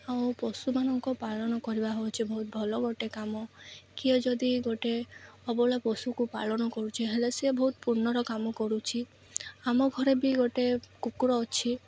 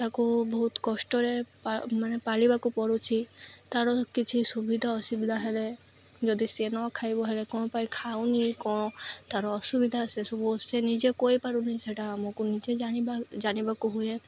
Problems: none marked